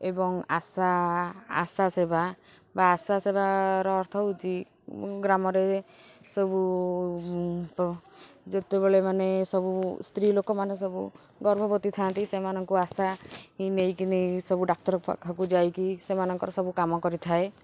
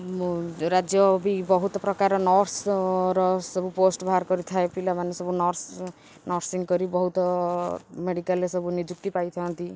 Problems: constant background noise